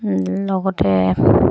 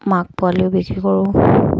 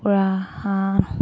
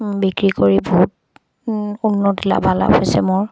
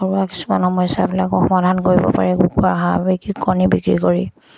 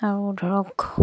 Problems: constant background noise